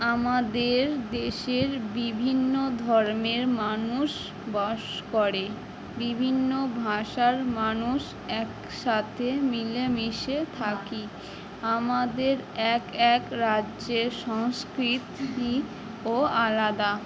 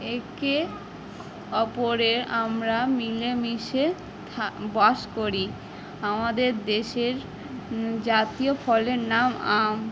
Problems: continuous background conversations